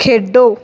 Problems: background sounds at intervals